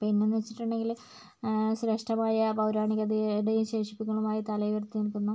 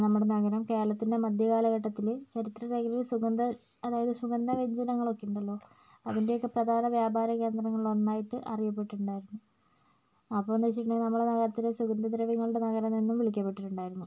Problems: none marked